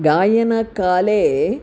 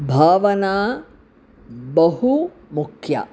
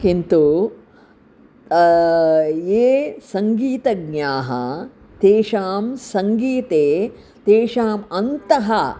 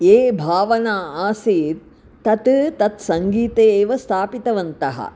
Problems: none marked